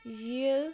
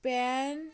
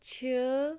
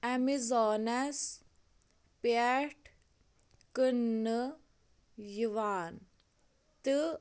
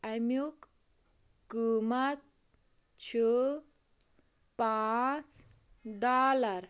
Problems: constant background noise, low volume